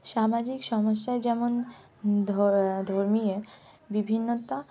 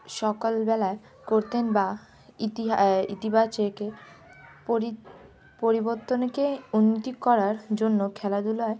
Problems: background sounds at intervals